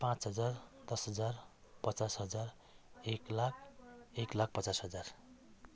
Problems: continuous background conversations